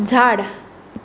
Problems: none marked